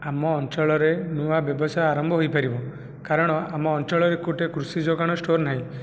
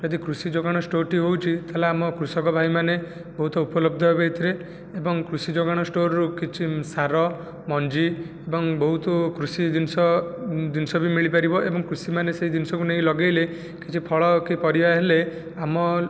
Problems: none marked